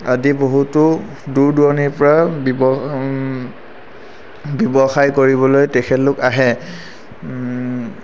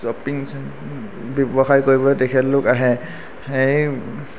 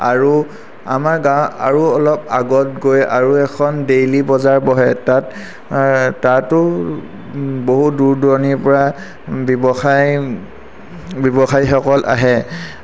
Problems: none marked